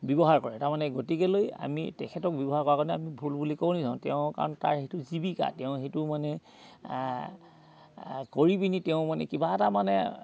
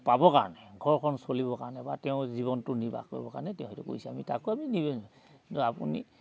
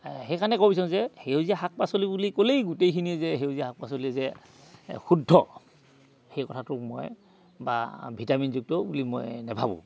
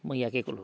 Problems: none marked